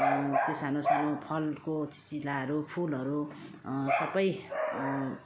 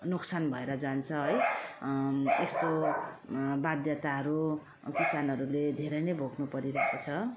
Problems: constant background noise